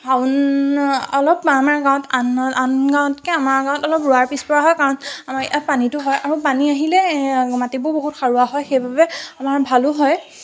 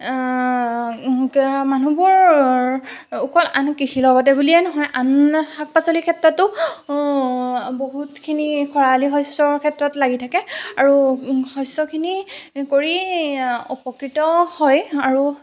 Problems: constant background noise